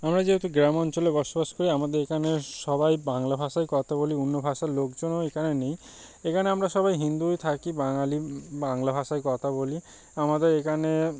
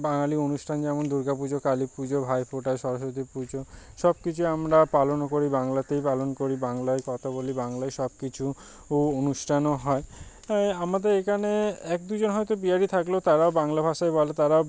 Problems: none marked